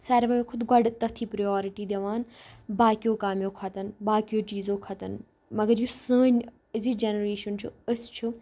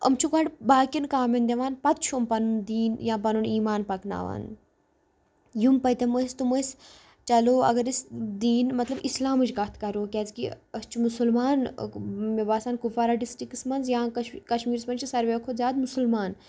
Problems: background sounds at intervals